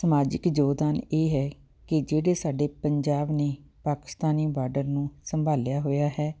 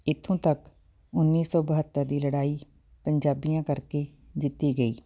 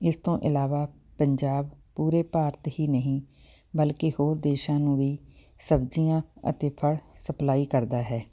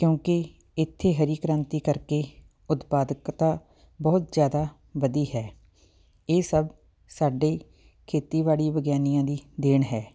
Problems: background sounds at intervals